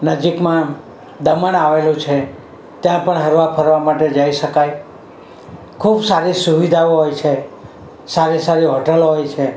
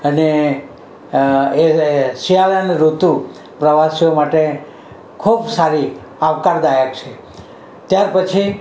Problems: none marked